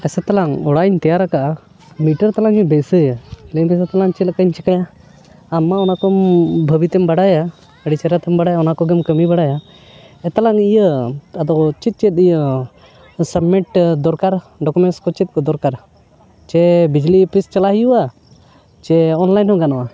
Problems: constant background noise, background conversations at intervals